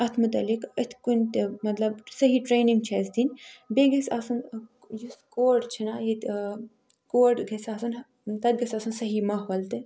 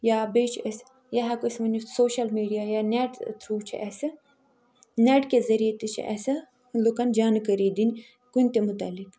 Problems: background sounds at intervals